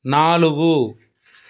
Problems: background sounds at intervals